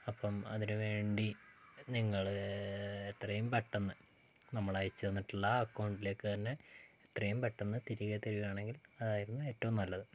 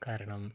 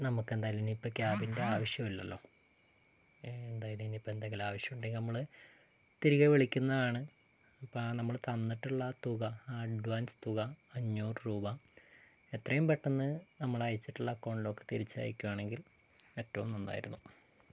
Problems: low volume